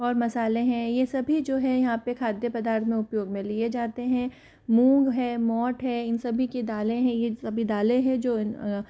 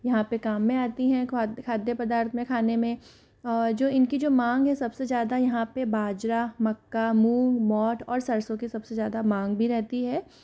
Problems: none marked